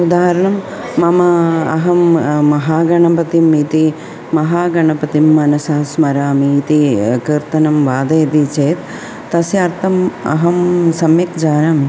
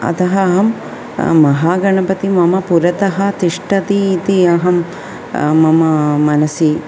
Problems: constant background noise, continuous background conversations